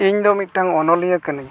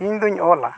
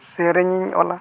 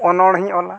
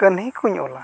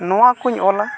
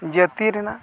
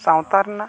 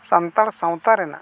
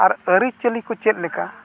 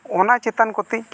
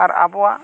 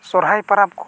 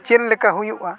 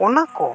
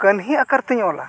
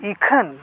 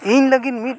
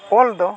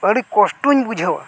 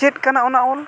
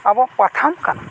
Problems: background sounds at intervals, background conversations at intervals